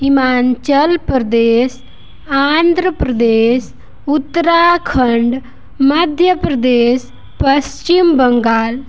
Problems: constant background noise